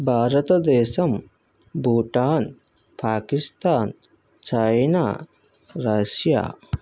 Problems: none marked